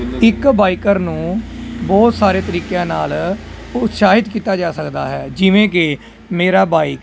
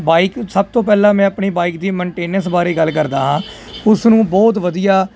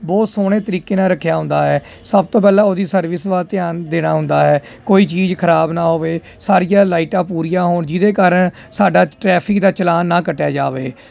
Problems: constant background noise